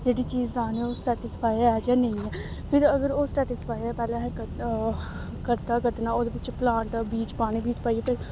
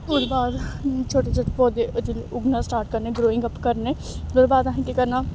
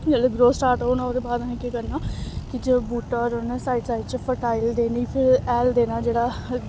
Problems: constant background noise